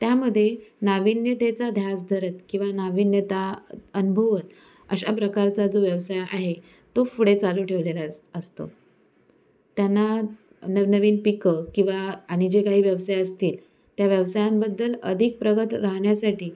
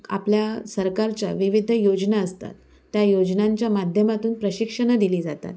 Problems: none marked